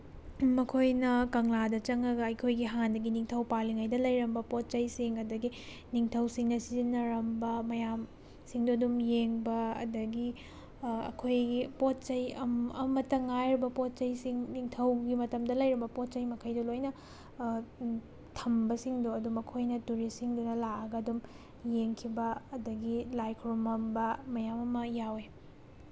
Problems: none marked